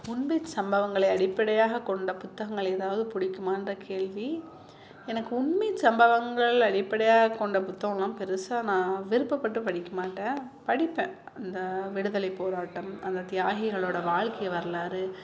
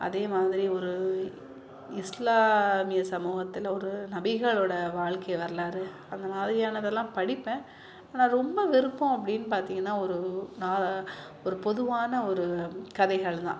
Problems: continuous background conversations